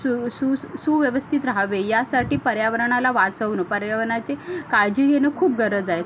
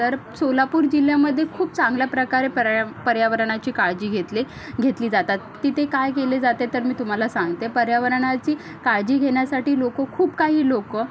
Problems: constant background noise